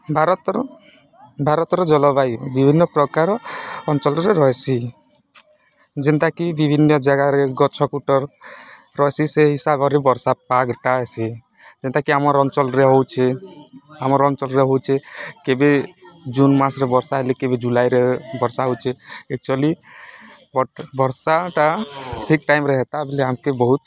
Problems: background sounds at intervals